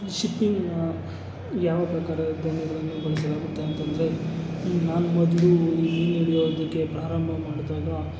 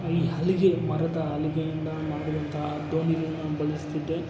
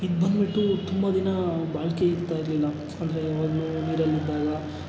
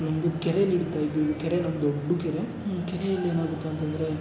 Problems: background sounds at intervals